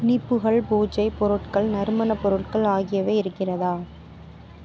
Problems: none marked